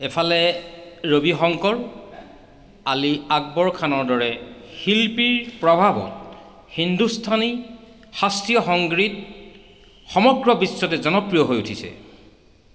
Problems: background sounds at intervals